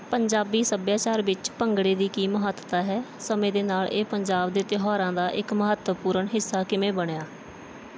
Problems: background sounds at intervals